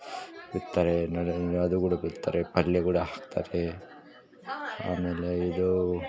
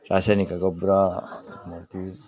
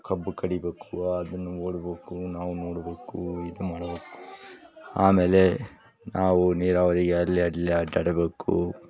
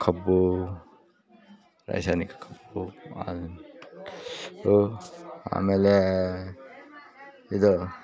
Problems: background sounds at intervals